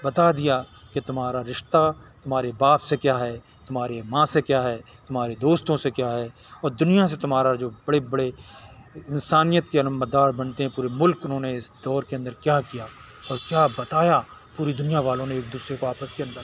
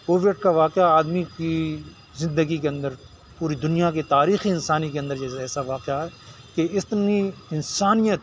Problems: background sounds at intervals